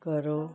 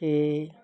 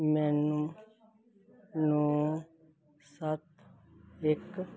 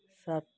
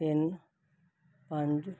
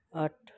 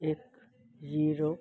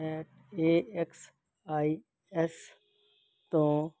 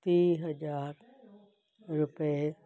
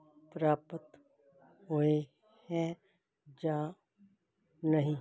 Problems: continuous background conversations